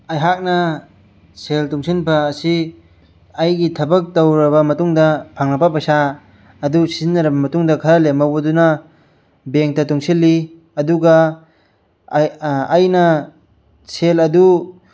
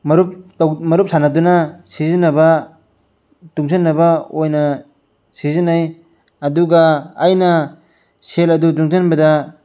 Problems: none marked